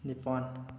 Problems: none marked